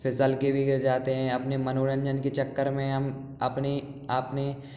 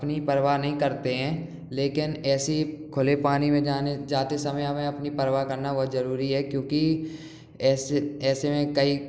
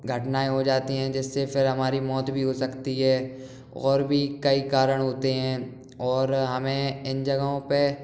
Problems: background sounds at intervals